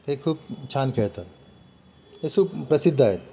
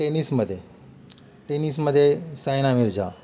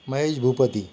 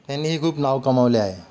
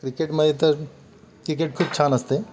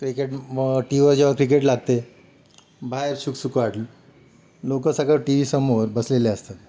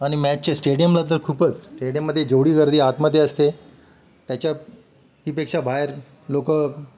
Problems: none marked